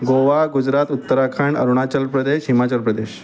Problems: constant background noise, background conversations at intervals